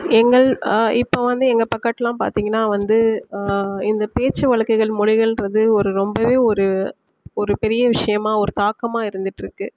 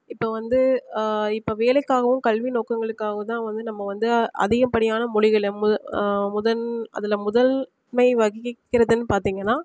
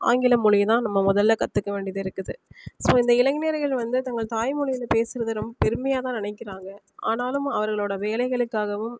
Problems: background sounds at intervals